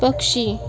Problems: constant background noise